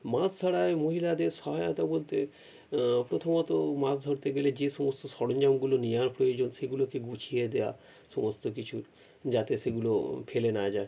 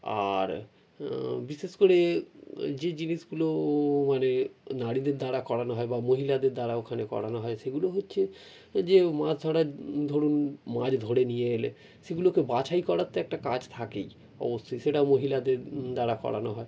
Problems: none marked